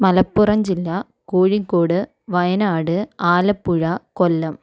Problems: none marked